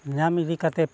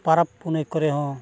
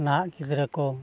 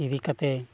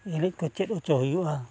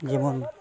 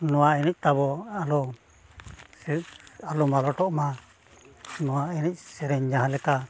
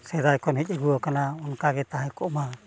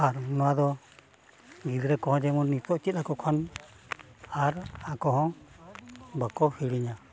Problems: constant background noise, continuous background conversations